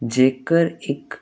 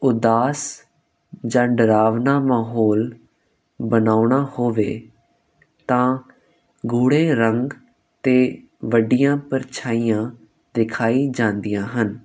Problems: constant background noise